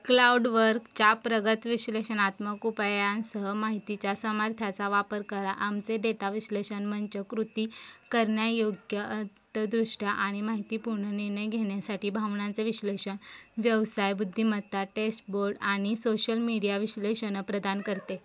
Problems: constant background noise, background conversations at intervals